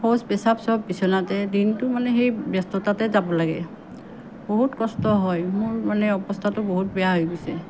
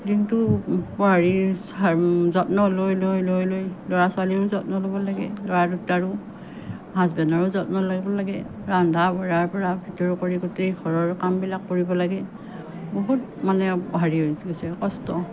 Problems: none marked